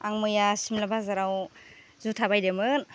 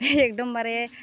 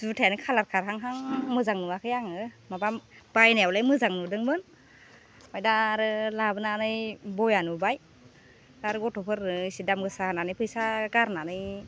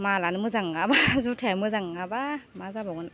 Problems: constant background noise